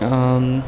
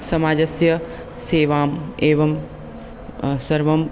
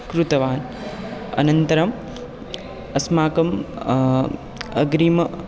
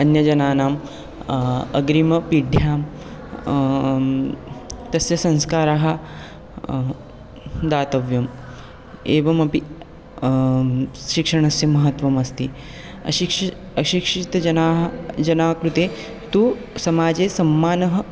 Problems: constant background noise